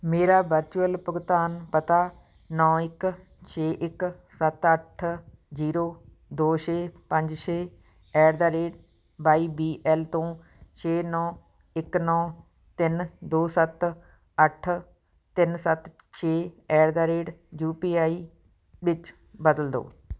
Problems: background sounds at intervals